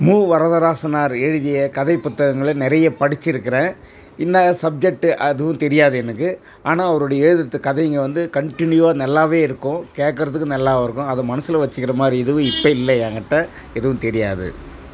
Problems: background sounds at intervals